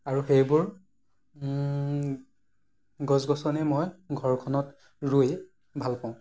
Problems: none marked